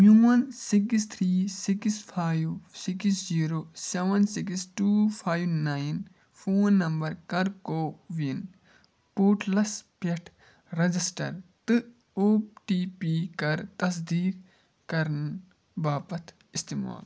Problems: low volume